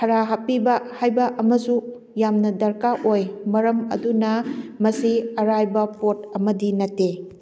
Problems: background conversations at intervals